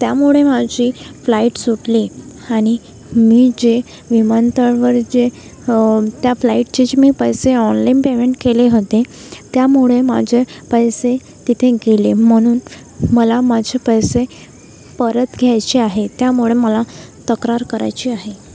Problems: constant background noise, background conversations at intervals